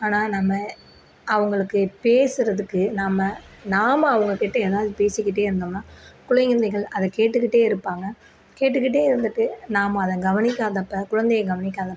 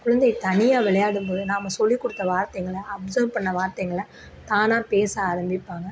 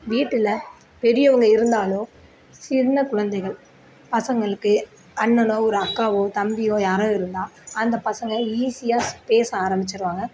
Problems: none marked